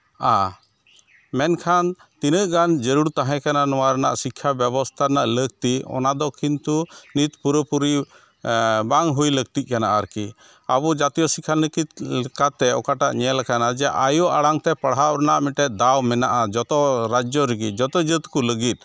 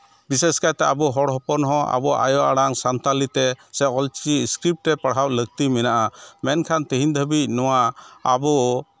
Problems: background sounds at intervals